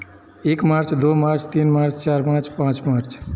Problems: constant background noise, echo